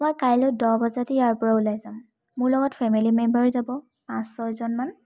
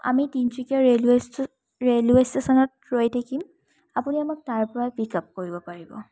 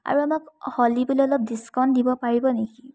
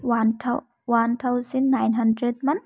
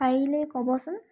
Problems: none marked